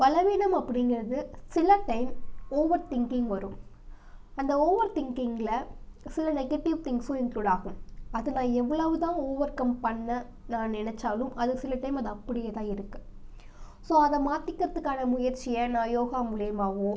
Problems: none marked